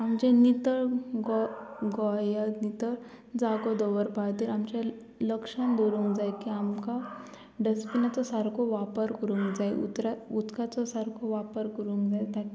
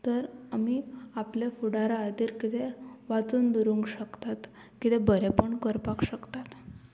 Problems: constant background noise